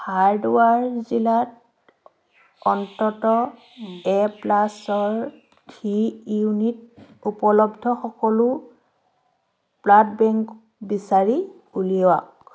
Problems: none marked